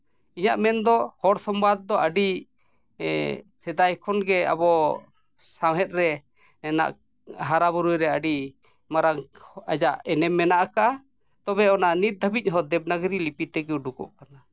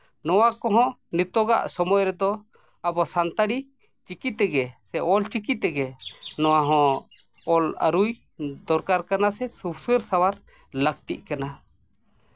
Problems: none marked